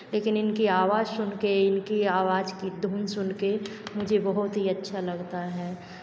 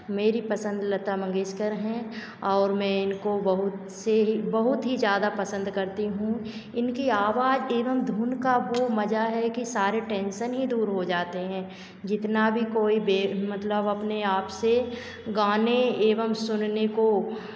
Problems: none marked